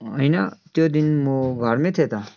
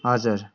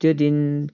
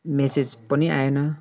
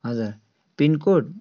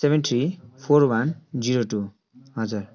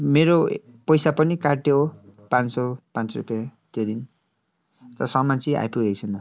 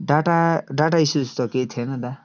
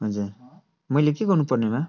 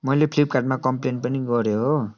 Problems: continuous background conversations